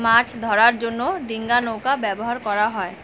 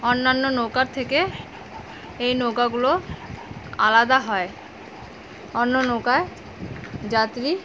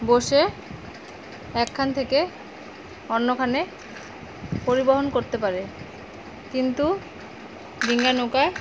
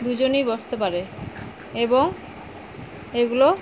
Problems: none marked